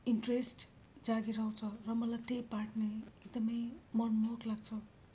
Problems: low volume